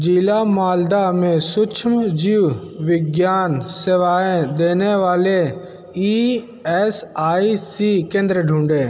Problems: constant background noise